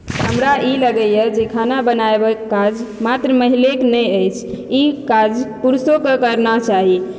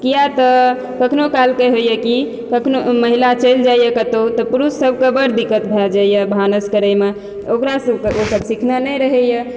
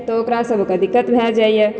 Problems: background sounds at intervals